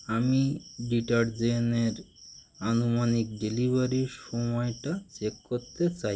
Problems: none marked